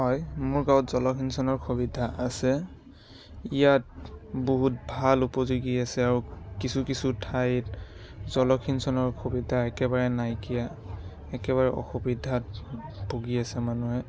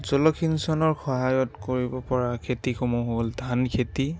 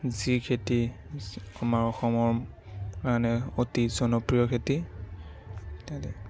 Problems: background sounds at intervals, continuous background conversations